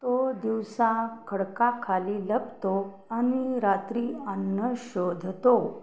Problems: background sounds at intervals